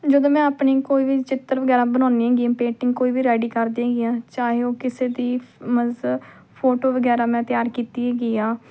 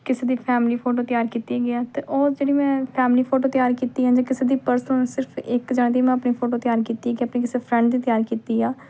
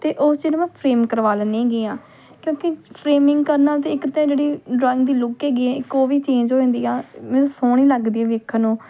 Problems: none marked